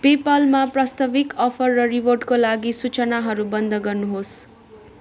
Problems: continuous background conversations